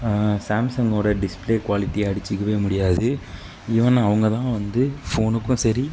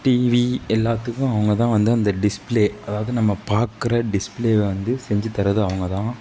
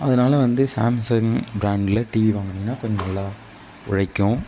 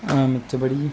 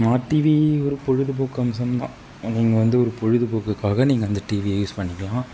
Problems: none marked